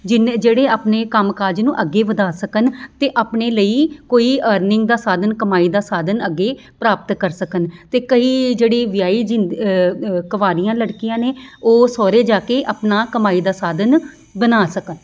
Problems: constant background noise